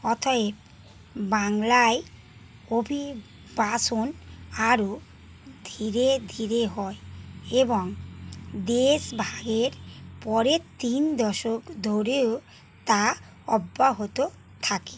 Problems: constant background noise